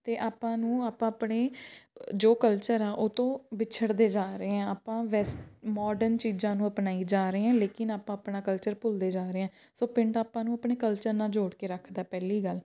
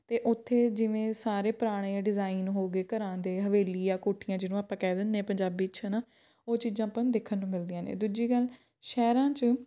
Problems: background sounds at intervals